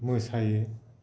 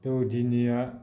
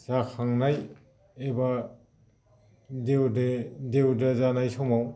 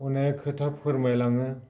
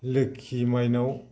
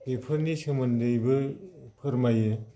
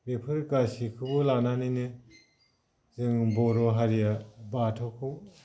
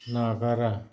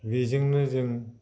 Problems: low volume